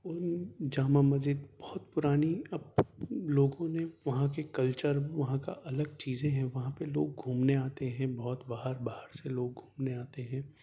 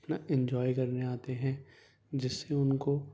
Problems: low volume